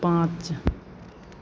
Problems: constant background noise, continuous background conversations